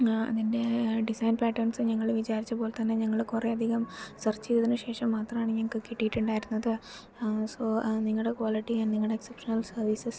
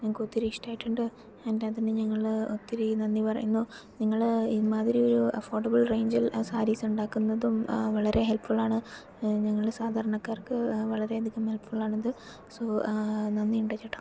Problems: low volume